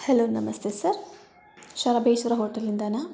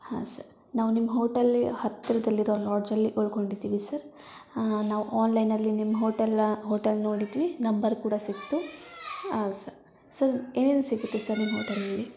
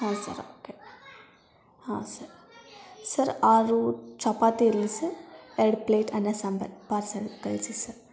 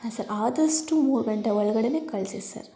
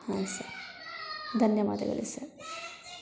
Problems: continuous background conversations